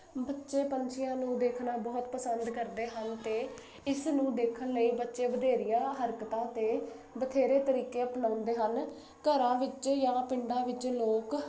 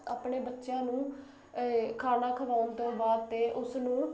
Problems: constant background noise